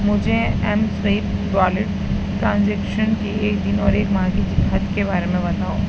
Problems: constant background noise, low volume